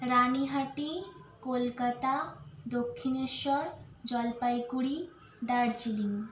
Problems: constant background noise